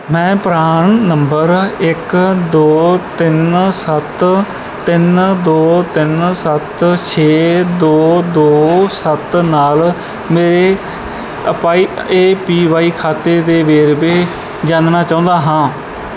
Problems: background sounds at intervals